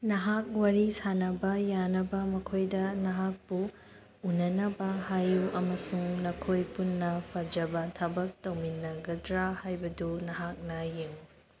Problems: background sounds at intervals